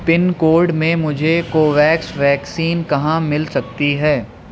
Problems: constant background noise